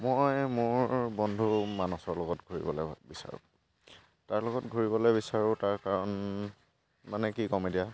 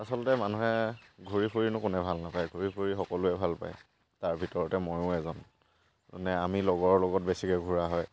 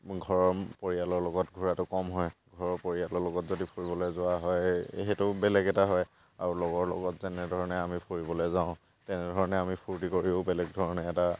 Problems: background sounds at intervals